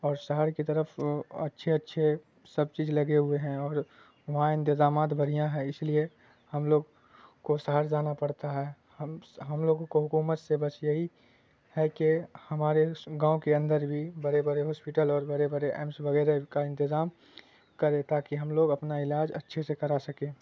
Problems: constant background noise